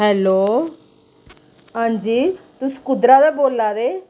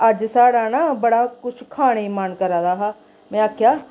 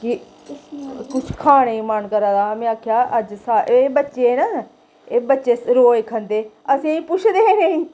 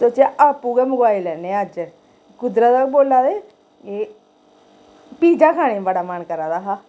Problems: constant background noise, echo